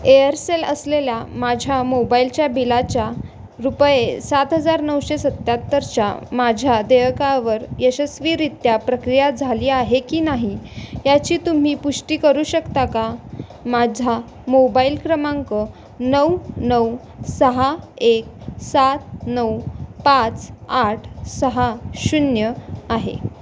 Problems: none marked